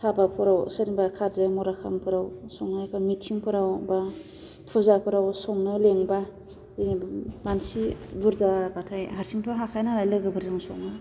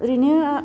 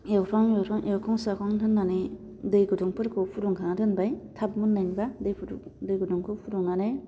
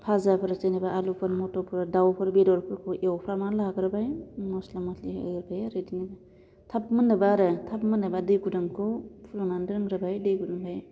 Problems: constant background noise